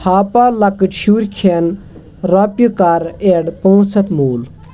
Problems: constant background noise